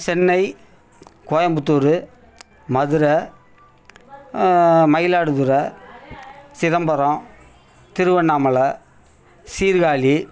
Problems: continuous background conversations